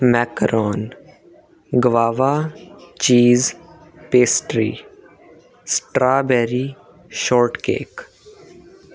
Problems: constant background noise